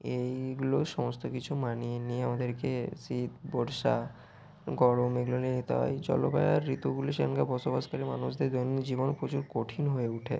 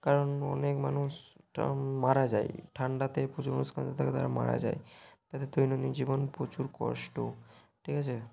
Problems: background sounds at intervals